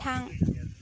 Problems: none marked